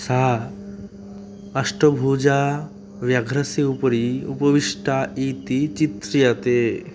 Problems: constant background noise